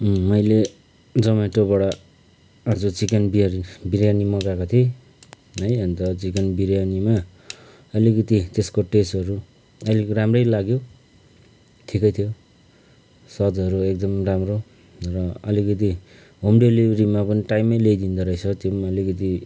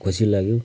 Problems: background sounds at intervals